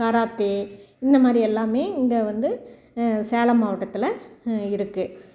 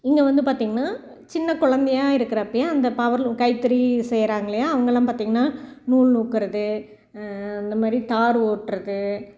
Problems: background sounds at intervals